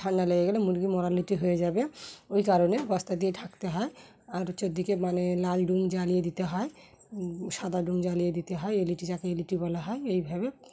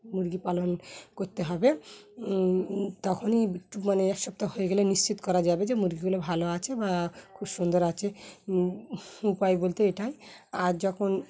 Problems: background sounds at intervals, background conversations at intervals